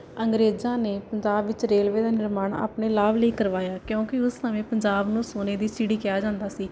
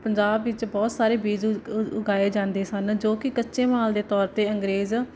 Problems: none marked